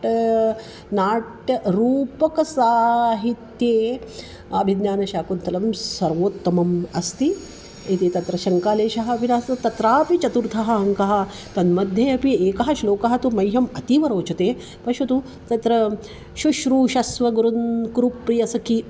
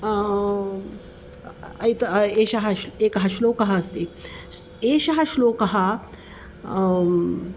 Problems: constant background noise